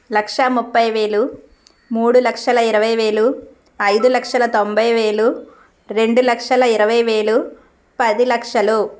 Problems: constant background noise